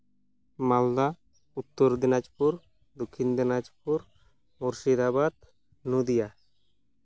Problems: none marked